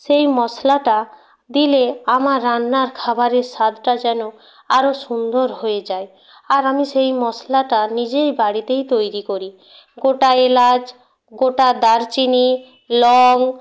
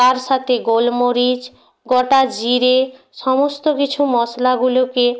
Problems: none marked